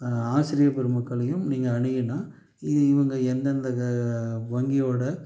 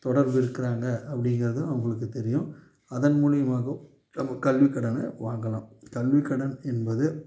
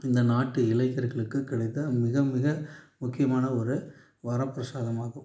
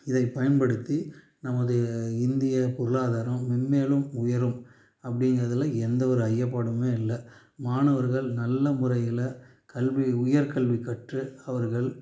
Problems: none marked